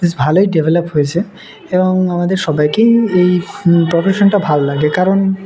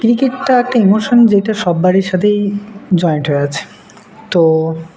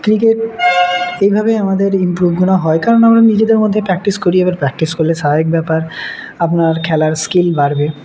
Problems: none marked